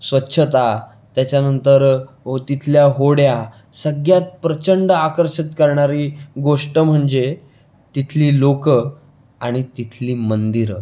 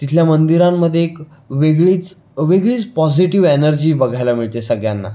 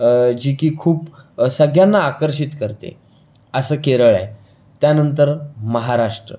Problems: constant background noise